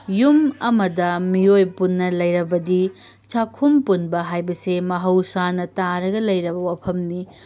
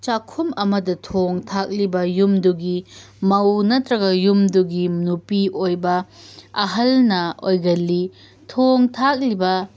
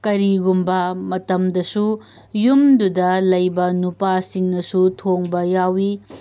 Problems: background sounds at intervals